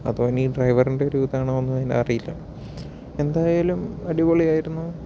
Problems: low volume